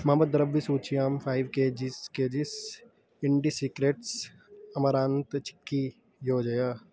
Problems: none marked